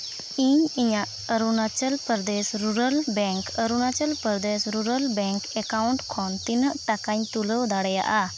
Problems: constant background noise